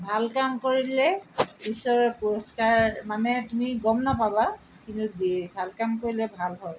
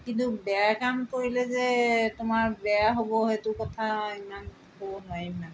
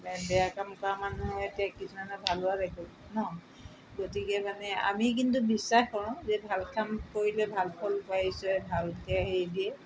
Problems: background sounds at intervals